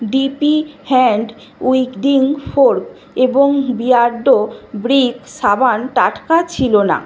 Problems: constant background noise